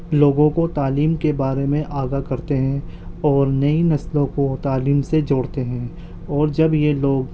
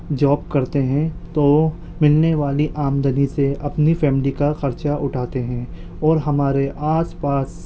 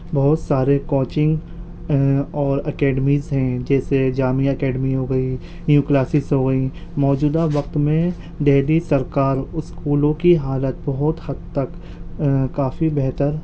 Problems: background sounds at intervals